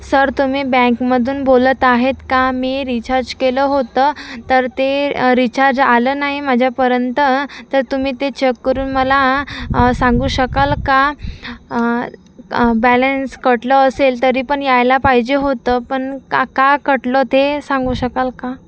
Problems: constant background noise